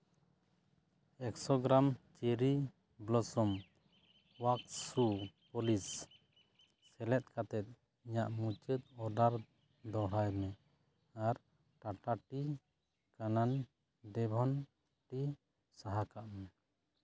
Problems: background sounds at intervals